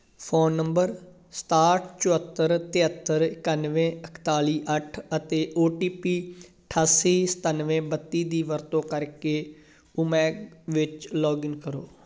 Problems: none marked